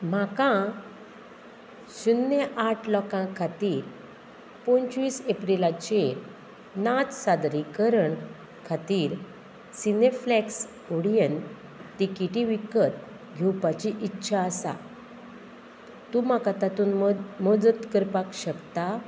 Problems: none marked